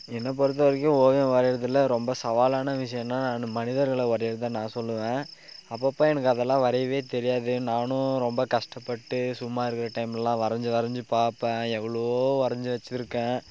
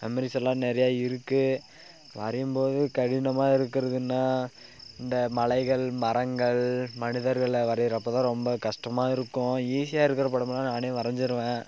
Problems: constant background noise